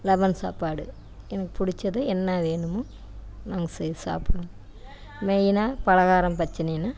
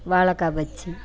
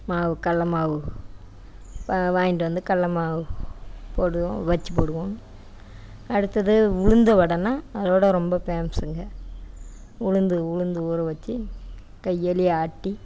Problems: none marked